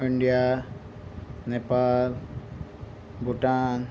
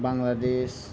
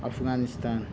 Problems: background sounds at intervals